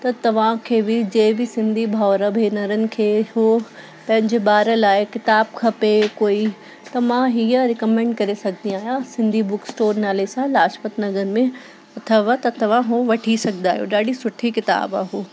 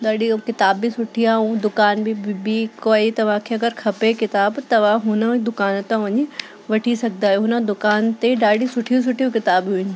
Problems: constant background noise